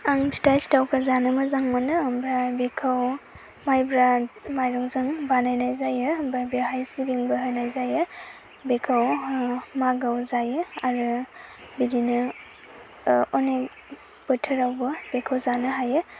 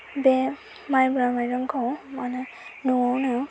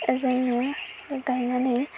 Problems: constant background noise